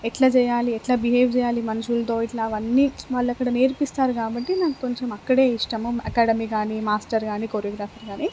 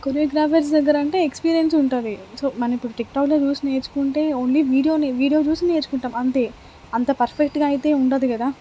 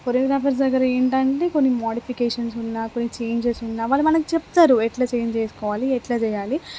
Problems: constant background noise